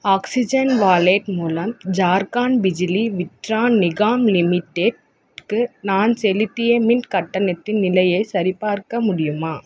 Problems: constant background noise